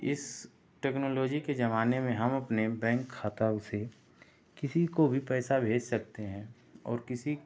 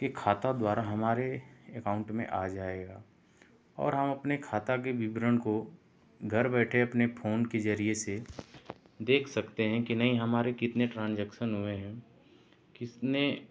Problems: none marked